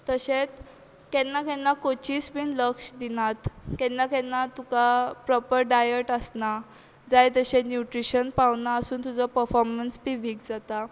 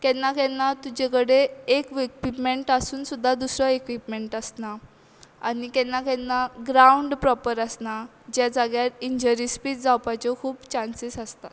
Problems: constant background noise